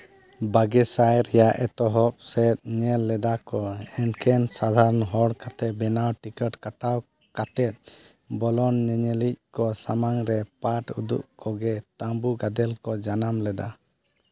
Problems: none marked